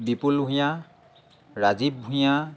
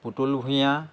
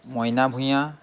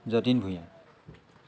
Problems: constant background noise